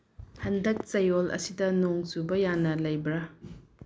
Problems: low volume